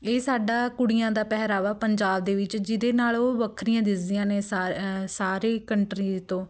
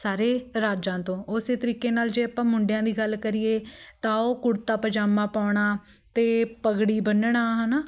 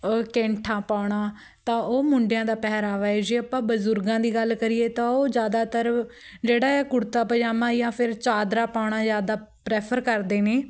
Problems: background sounds at intervals, background conversations at intervals